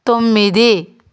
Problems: none marked